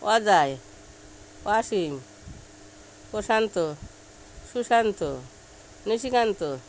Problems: none marked